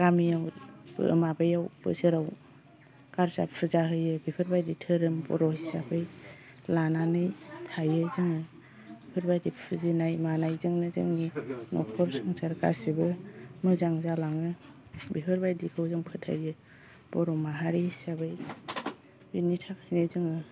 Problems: constant background noise